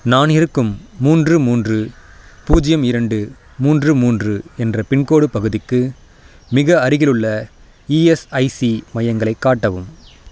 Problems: constant background noise